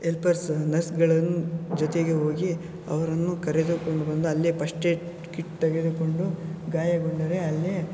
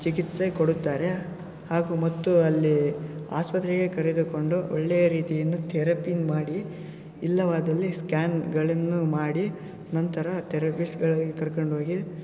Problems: background sounds at intervals